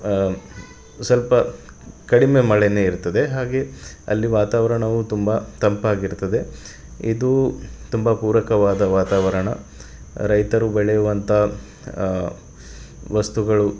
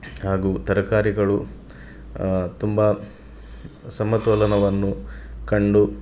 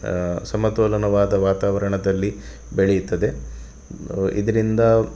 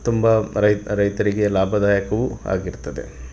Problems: none marked